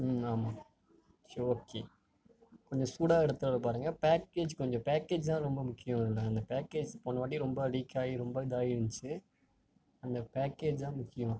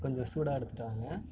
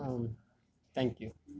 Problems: low volume